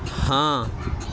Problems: constant background noise